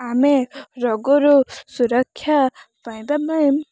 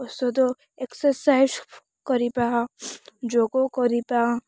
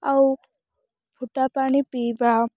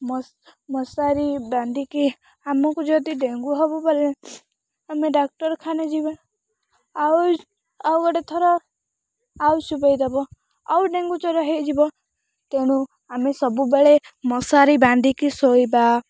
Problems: none marked